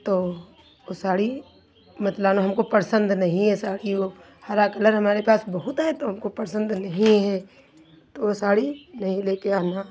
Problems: none marked